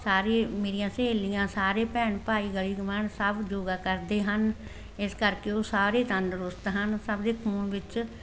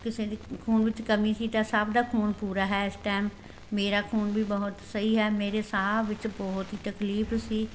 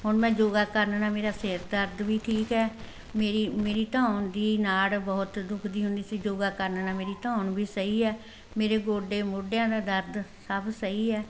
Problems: constant background noise